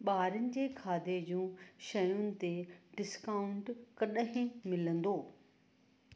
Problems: constant background noise